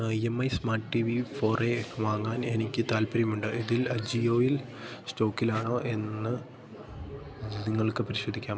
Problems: constant background noise